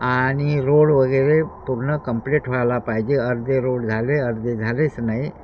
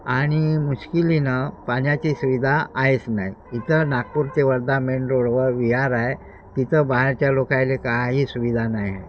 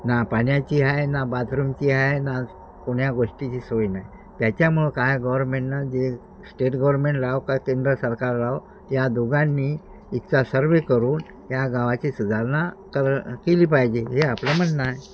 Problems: constant background noise